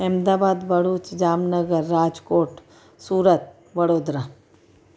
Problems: constant background noise